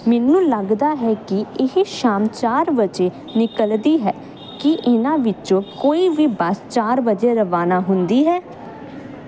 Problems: none marked